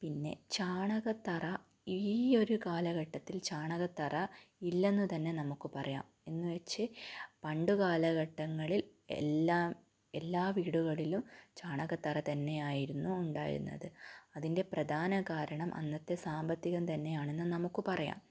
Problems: low volume